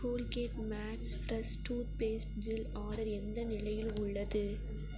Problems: constant background noise